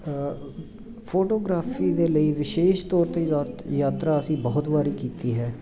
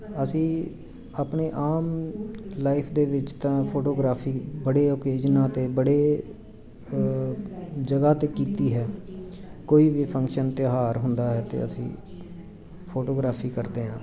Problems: continuous background conversations